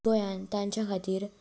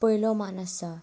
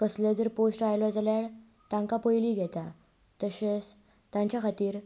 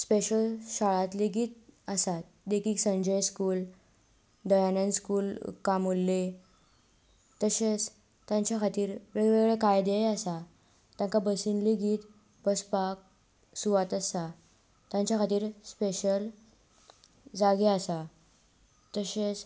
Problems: constant background noise